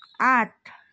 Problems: background conversations at intervals